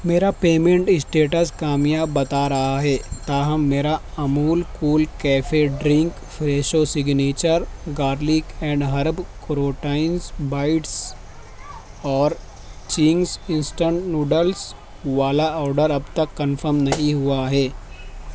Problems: constant background noise